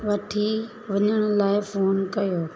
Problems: constant background noise